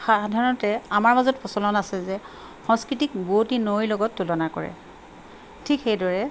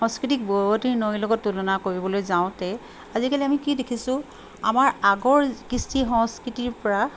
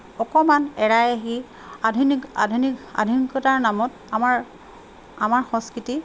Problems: constant background noise